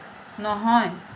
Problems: none marked